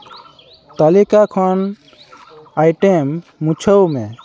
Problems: constant background noise